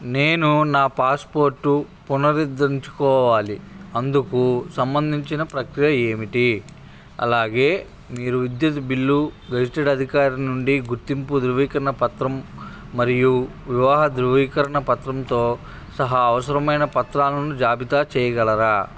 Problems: constant background noise, background conversations at intervals